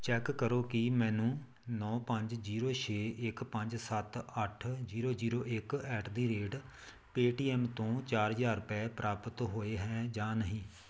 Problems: none marked